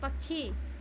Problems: background sounds at intervals